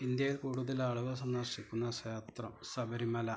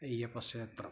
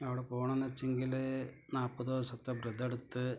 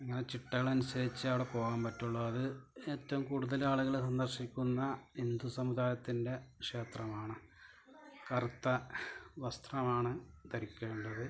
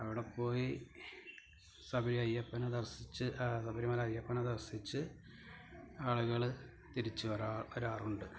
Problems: low volume